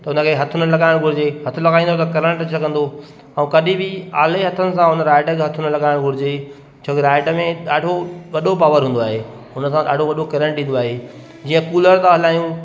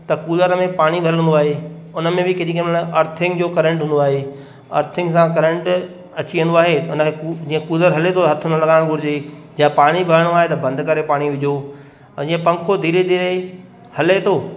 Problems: constant background noise, echo